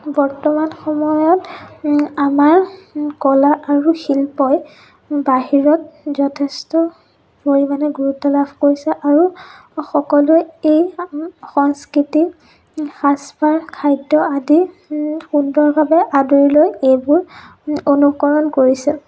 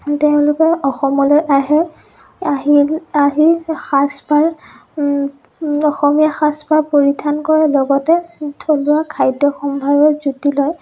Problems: background sounds at intervals, low volume